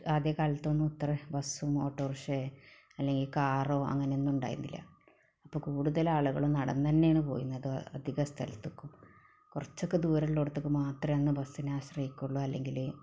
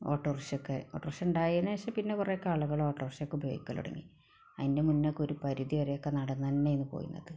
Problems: none marked